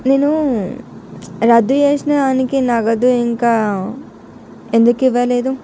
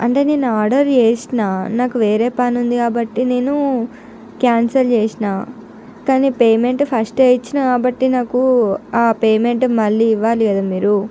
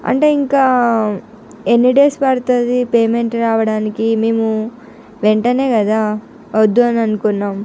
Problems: none marked